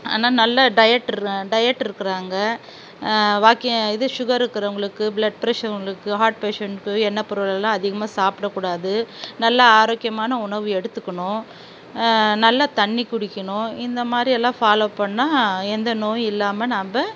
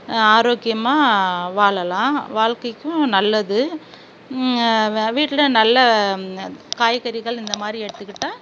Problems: constant background noise